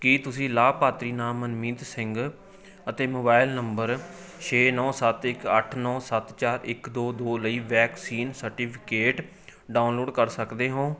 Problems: continuous background conversations